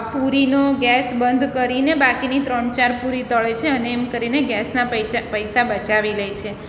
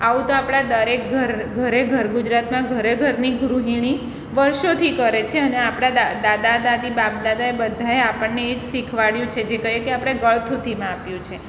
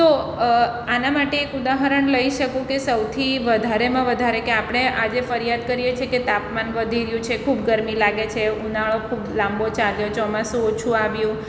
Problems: none marked